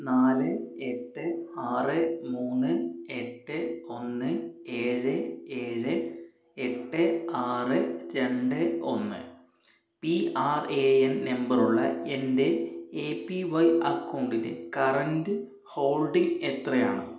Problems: echo, low volume